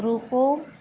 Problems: none marked